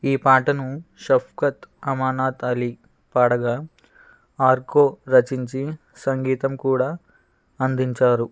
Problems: background sounds at intervals